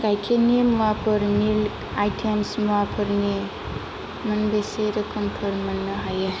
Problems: constant background noise